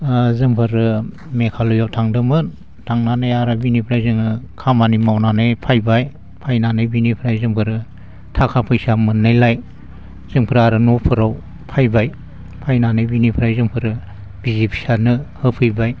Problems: constant background noise